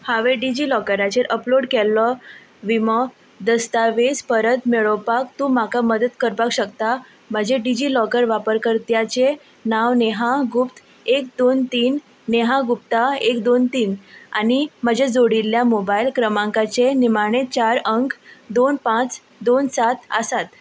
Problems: none marked